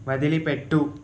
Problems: constant background noise